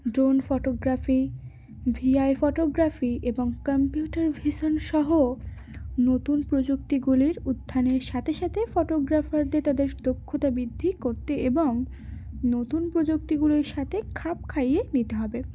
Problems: none marked